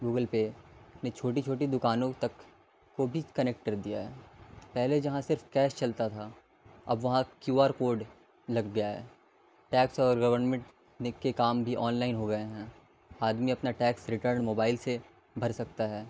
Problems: constant background noise